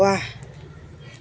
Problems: none marked